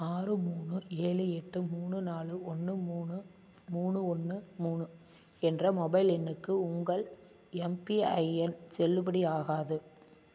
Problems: constant background noise